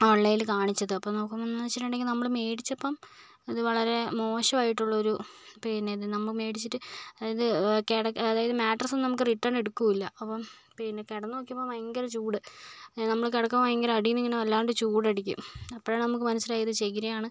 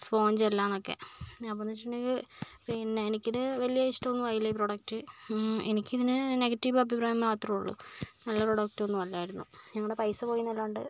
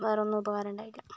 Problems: low volume